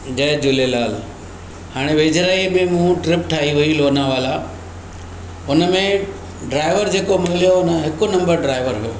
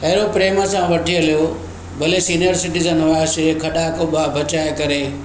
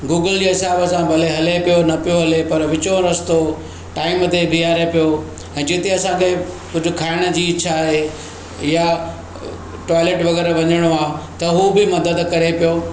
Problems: constant background noise, echo